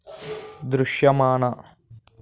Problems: background sounds at intervals